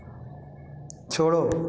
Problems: constant background noise